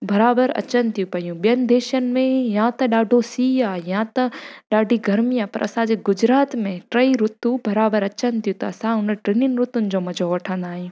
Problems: constant background noise